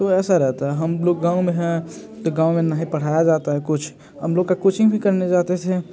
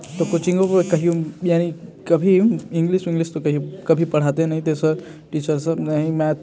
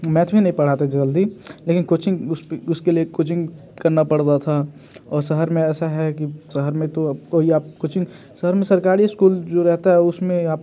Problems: background sounds at intervals